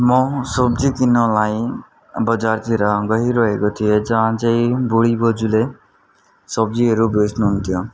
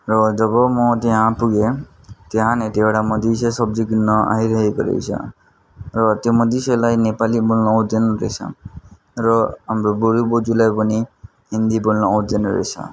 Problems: constant background noise